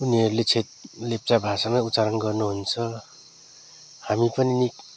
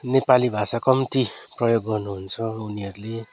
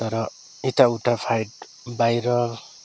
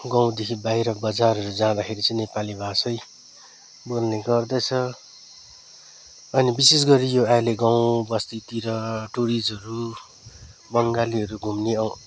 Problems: none marked